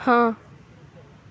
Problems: none marked